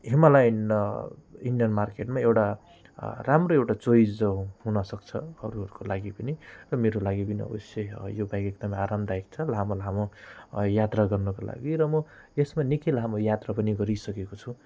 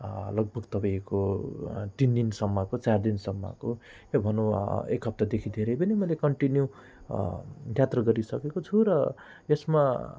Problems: none marked